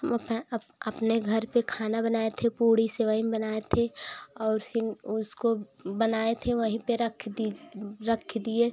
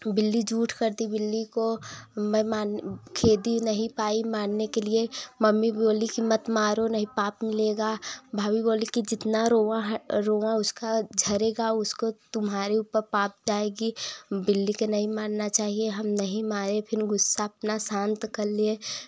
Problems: background sounds at intervals